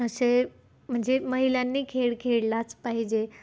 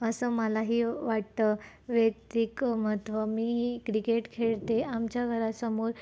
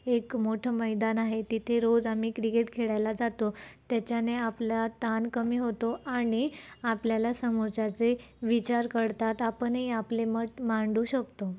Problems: constant background noise, low volume